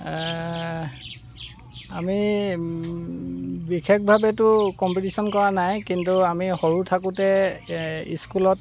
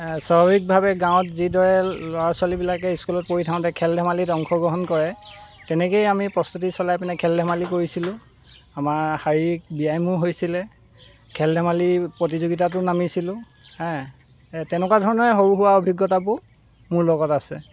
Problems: constant background noise